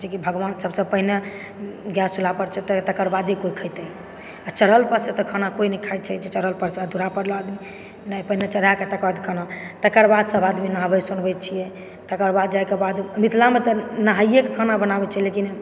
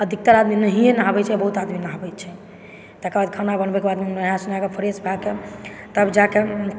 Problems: background sounds at intervals